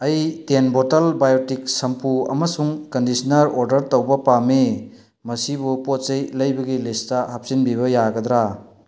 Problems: none marked